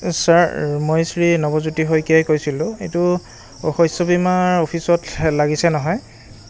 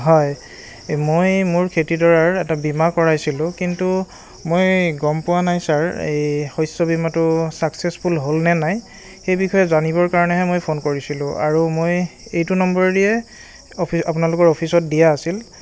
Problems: constant background noise, continuous background conversations